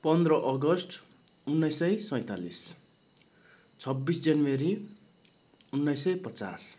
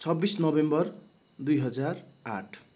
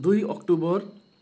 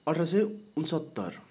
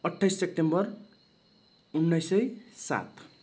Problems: none marked